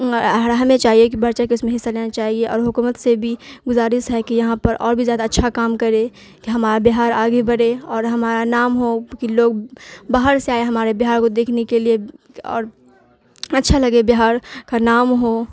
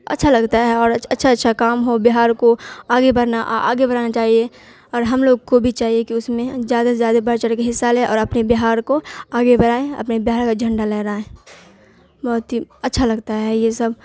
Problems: constant background noise